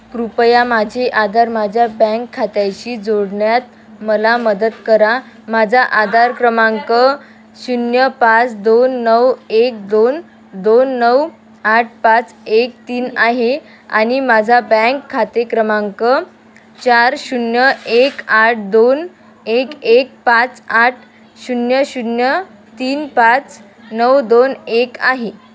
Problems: constant background noise, continuous background conversations